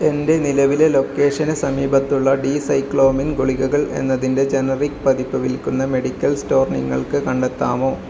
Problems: none marked